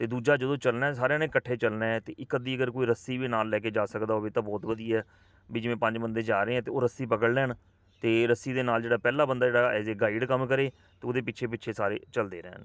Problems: constant background noise